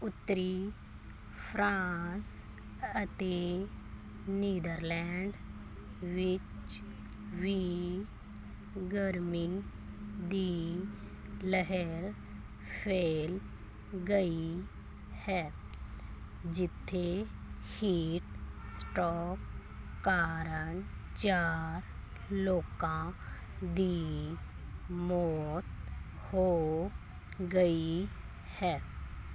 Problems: constant background noise